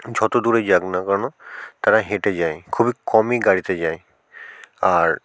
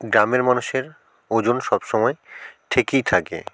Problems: background sounds at intervals